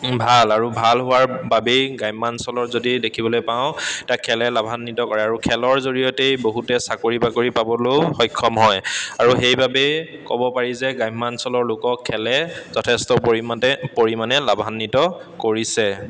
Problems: constant background noise, echo